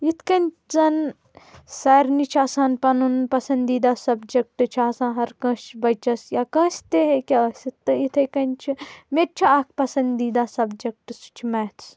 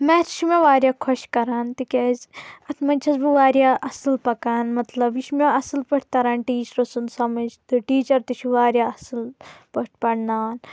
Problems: constant background noise